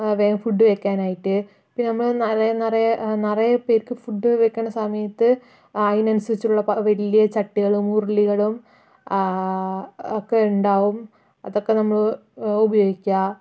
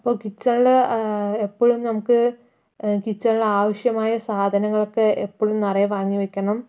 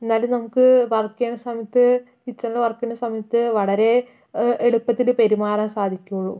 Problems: none marked